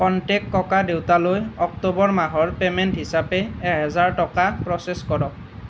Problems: none marked